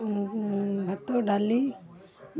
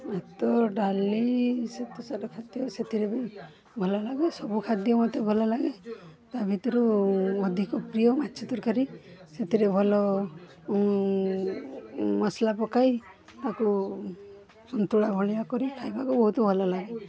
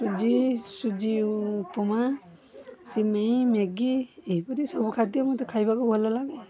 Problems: background sounds at intervals, continuous background conversations